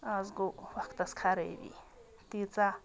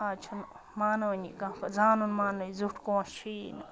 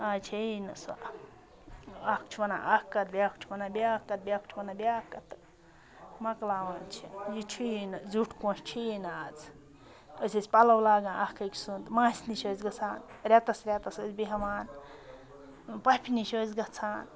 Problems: background sounds at intervals, background conversations at intervals